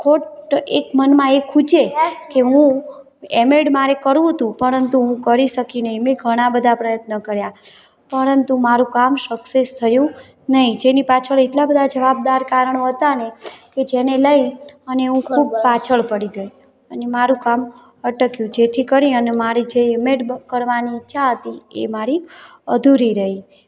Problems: constant background noise, background conversations at intervals